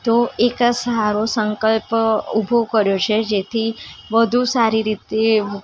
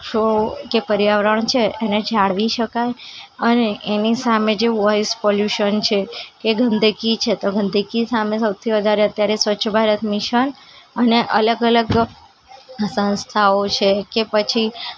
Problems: constant background noise, continuous background conversations